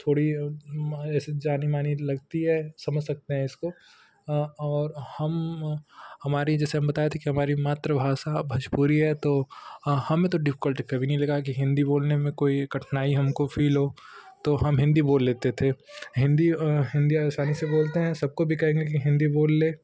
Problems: constant background noise